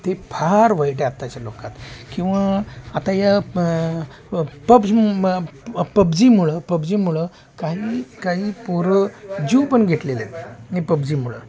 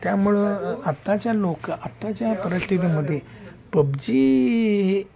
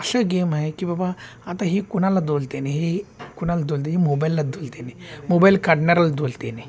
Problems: constant background noise, continuous background conversations